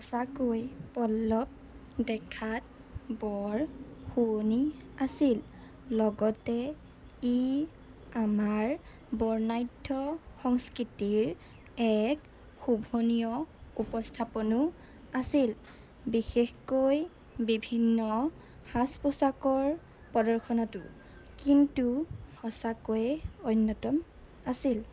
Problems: constant background noise